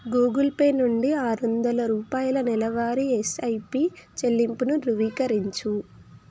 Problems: none marked